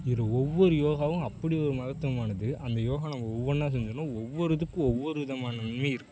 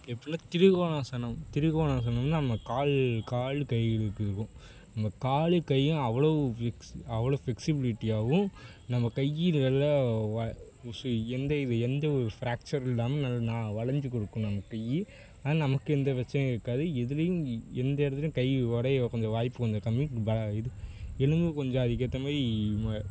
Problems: constant background noise